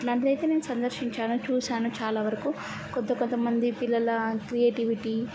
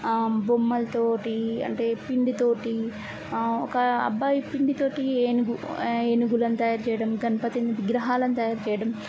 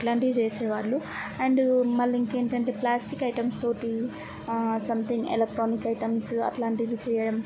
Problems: constant background noise